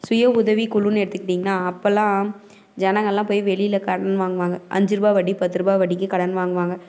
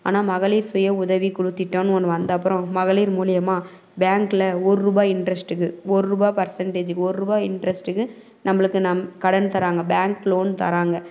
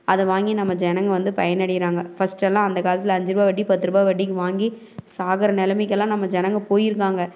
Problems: none marked